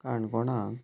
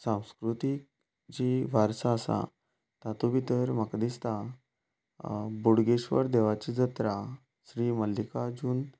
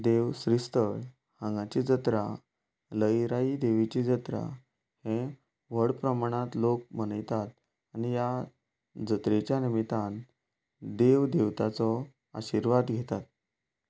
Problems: none marked